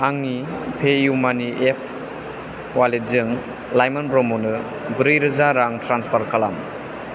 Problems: constant background noise